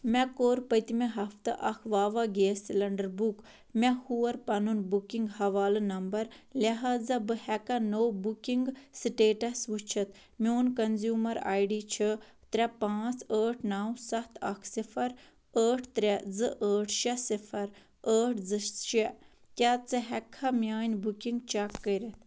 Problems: none marked